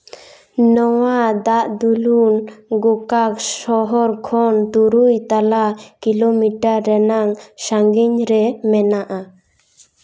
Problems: echo